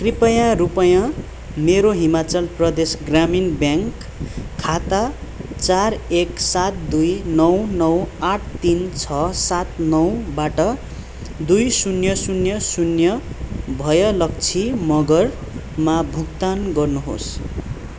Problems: background sounds at intervals